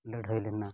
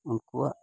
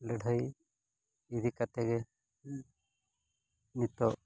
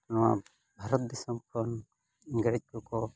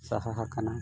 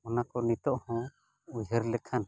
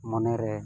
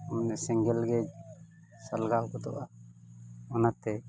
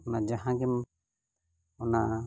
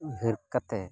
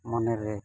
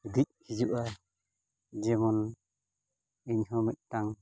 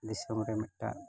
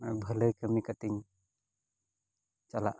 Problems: none marked